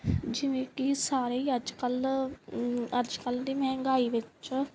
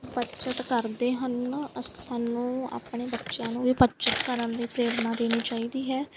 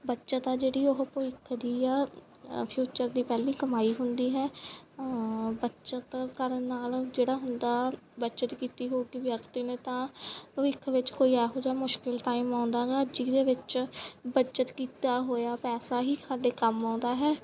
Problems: background sounds at intervals